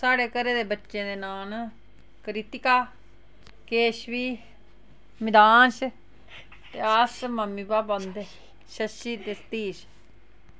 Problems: background sounds at intervals, background conversations at intervals